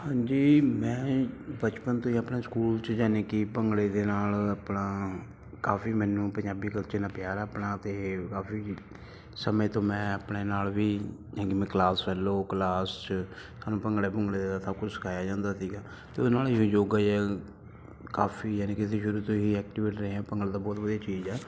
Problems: background sounds at intervals